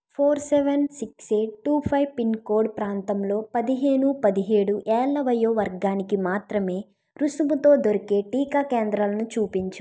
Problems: none marked